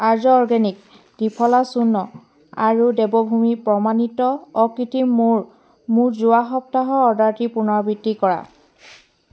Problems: background sounds at intervals